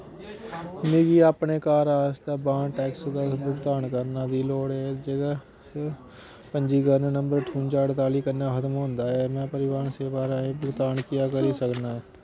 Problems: constant background noise